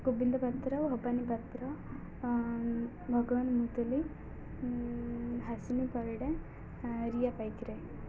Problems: none marked